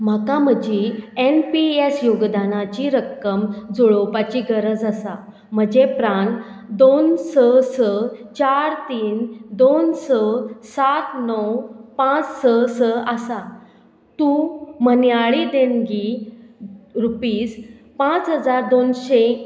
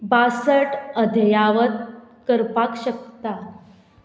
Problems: none marked